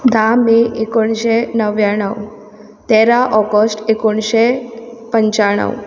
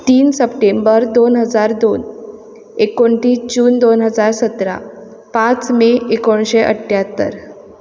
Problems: constant background noise